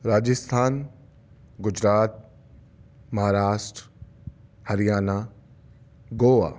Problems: none marked